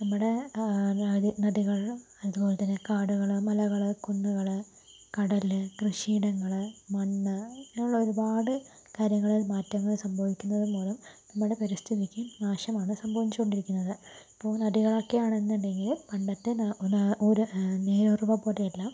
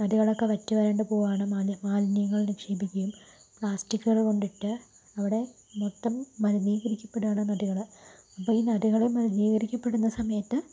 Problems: constant background noise, low volume